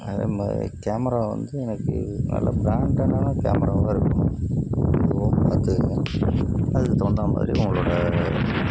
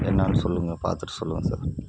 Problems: constant background noise